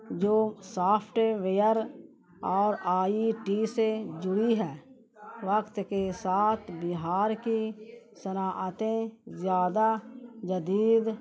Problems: constant background noise, low volume